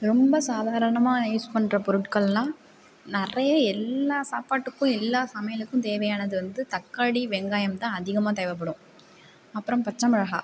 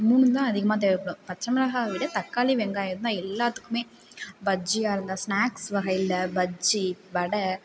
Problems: none marked